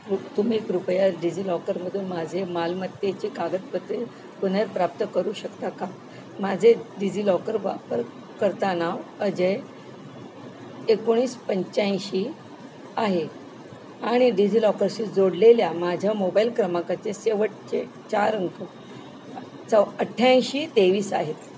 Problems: none marked